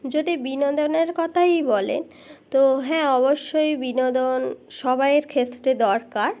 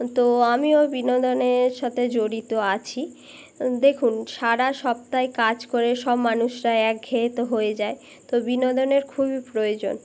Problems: constant background noise